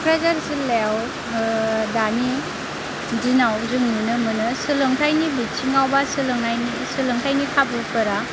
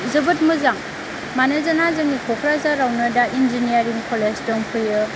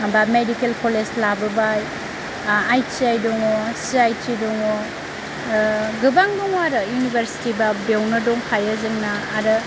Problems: constant background noise, low volume